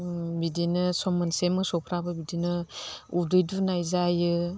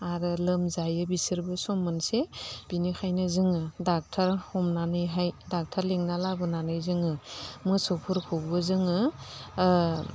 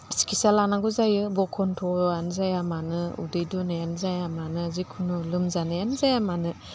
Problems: none marked